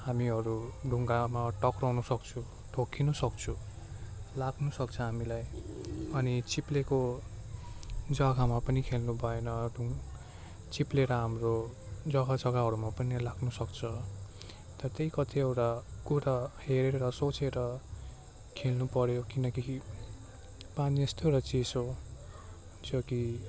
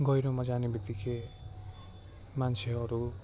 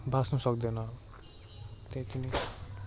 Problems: none marked